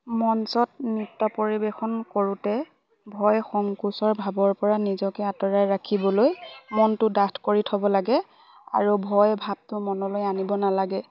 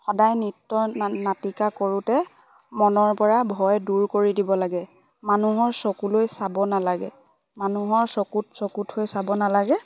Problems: constant background noise, background conversations at intervals